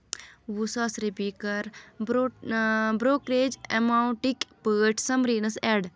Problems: constant background noise